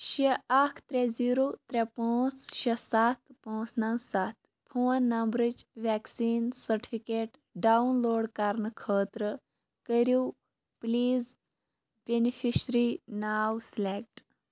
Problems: none marked